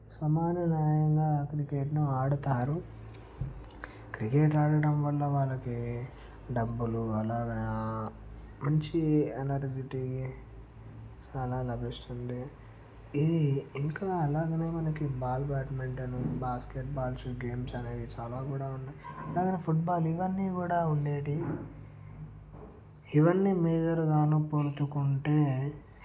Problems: low volume